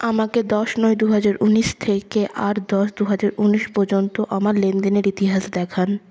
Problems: none marked